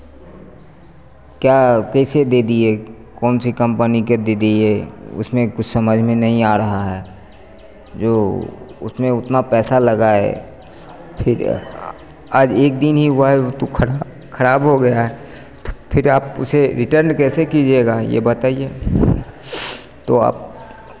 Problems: none marked